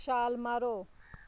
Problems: constant background noise